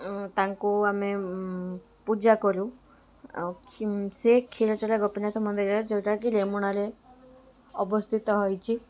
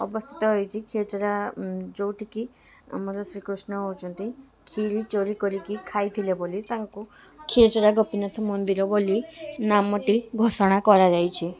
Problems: constant background noise, continuous background conversations